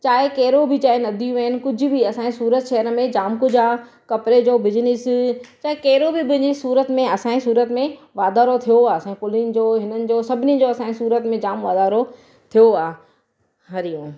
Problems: none marked